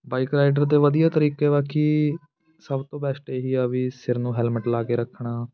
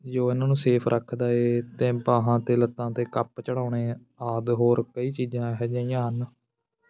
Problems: continuous background conversations